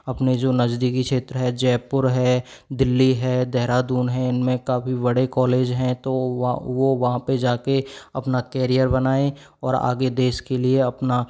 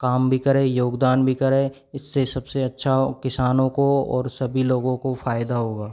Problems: background sounds at intervals